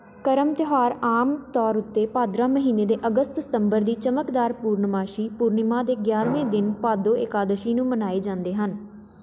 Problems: background sounds at intervals